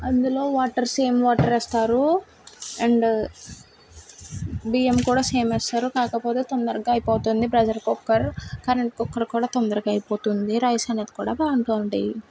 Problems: background sounds at intervals